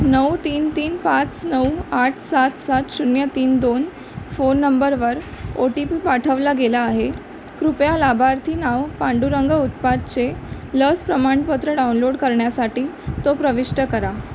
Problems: constant background noise